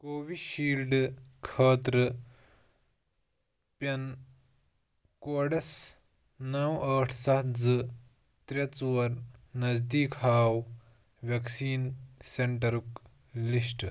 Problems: none marked